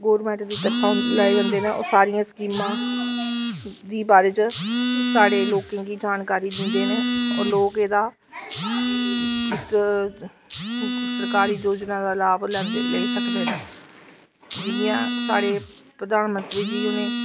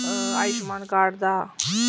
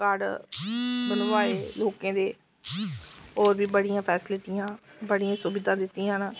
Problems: constant background noise